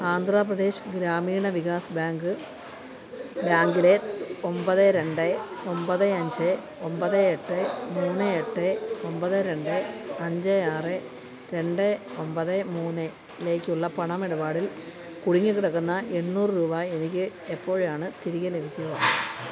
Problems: constant background noise